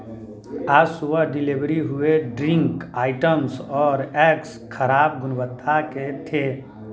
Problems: continuous background conversations